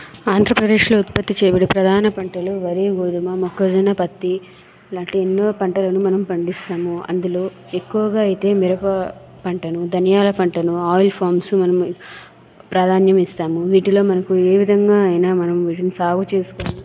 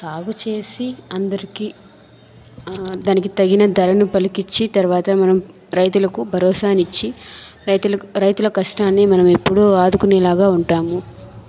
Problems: background sounds at intervals